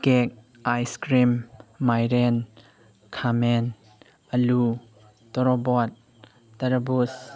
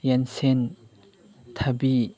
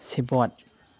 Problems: constant background noise